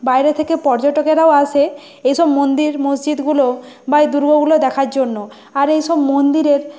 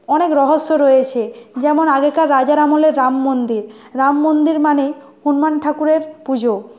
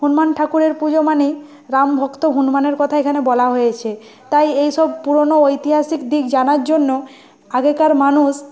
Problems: constant background noise